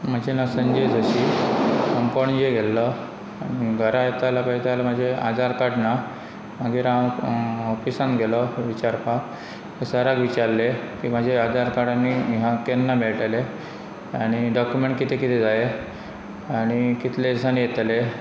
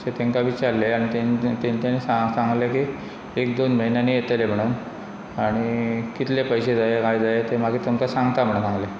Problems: background sounds at intervals